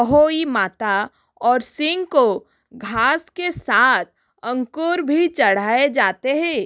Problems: constant background noise